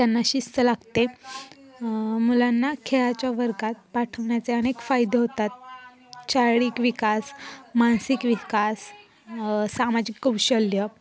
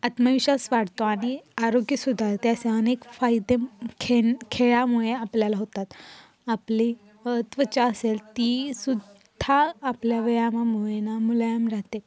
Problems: constant background noise, continuous background conversations